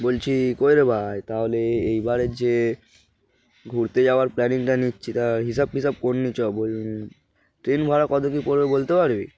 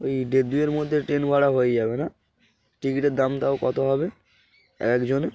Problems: background sounds at intervals